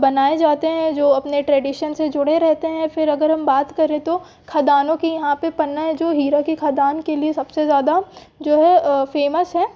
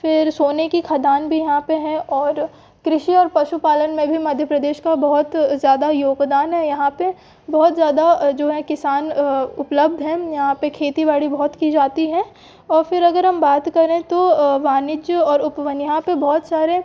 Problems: background sounds at intervals